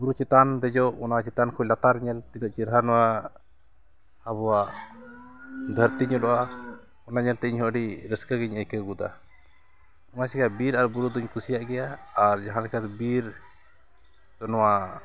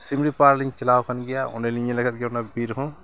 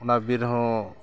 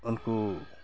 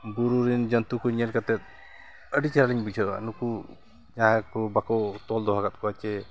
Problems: constant background noise, background conversations at intervals